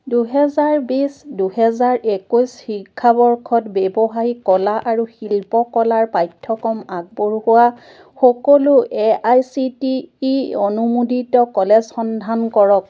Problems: none marked